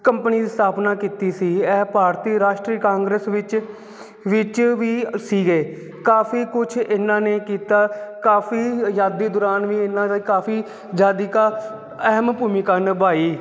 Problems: constant background noise